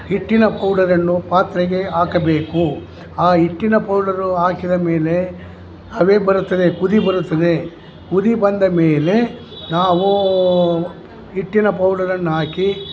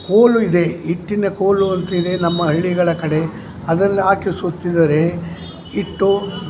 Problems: background sounds at intervals